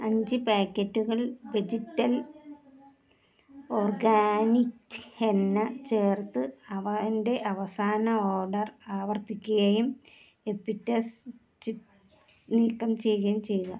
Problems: low volume